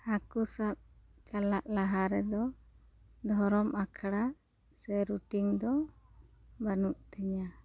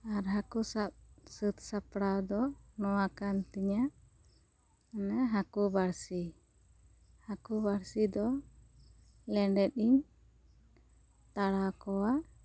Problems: none marked